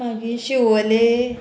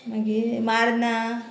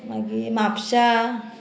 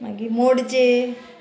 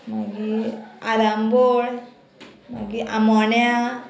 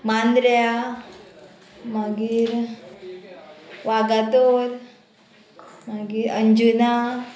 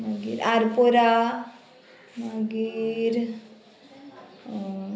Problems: none marked